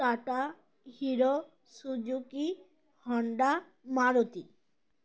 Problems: constant background noise